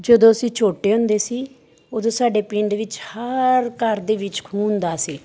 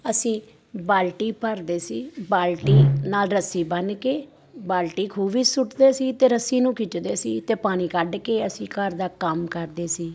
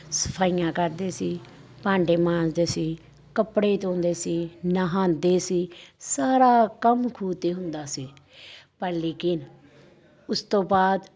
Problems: none marked